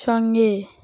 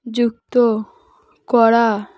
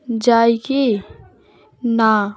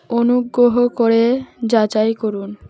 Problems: none marked